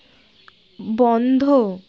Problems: constant background noise